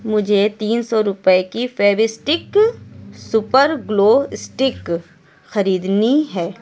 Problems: background conversations at intervals